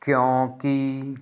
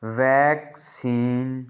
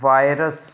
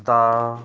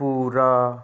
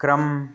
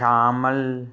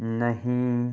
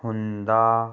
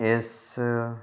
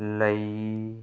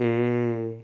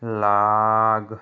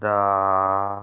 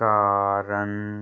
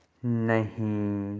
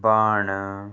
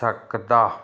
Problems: background sounds at intervals